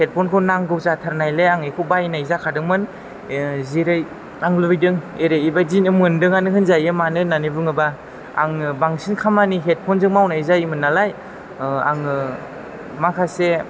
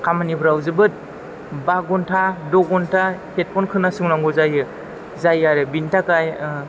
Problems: background sounds at intervals